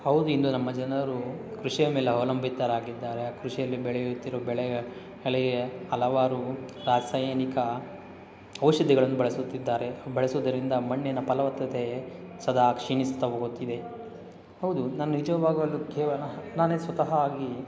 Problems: background sounds at intervals